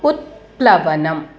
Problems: constant background noise